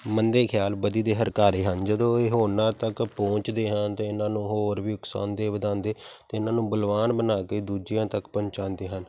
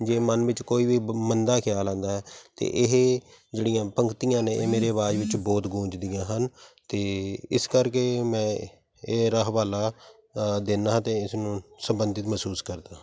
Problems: background sounds at intervals